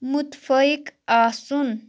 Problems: background sounds at intervals